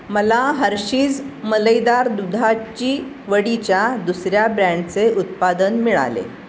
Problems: constant background noise